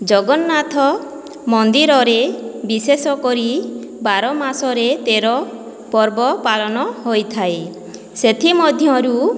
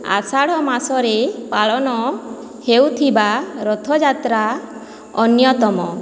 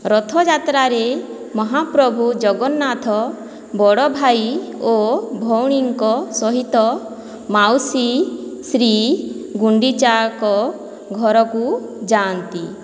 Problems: none marked